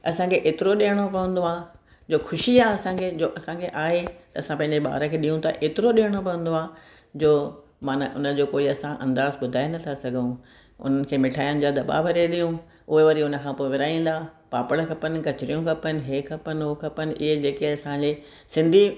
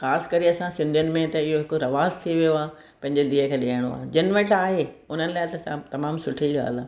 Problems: none marked